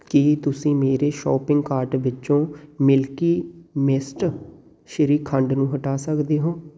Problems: background sounds at intervals